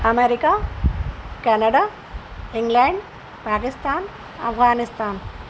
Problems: constant background noise